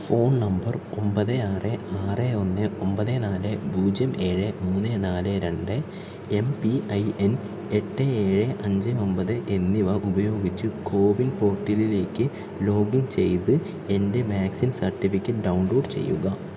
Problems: none marked